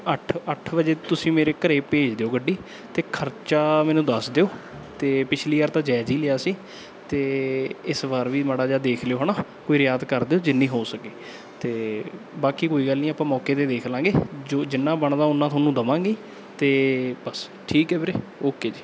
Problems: background sounds at intervals